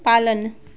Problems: constant background noise